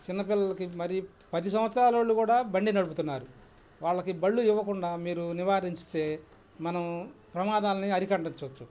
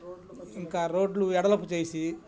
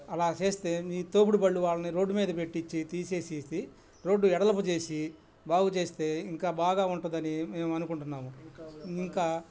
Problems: background sounds at intervals, background conversations at intervals